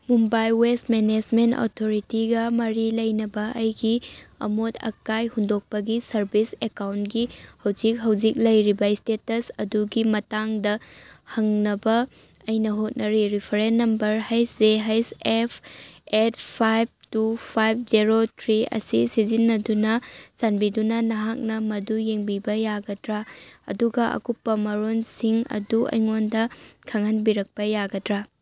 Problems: none marked